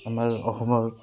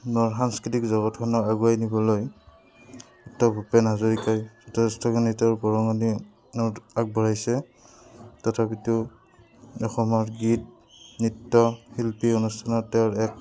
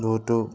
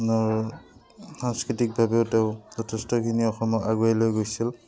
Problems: background sounds at intervals